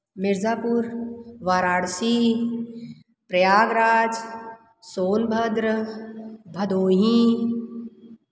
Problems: none marked